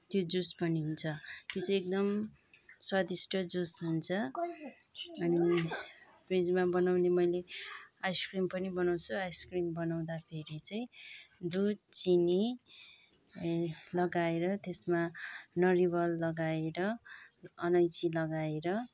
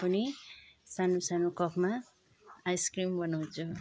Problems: background sounds at intervals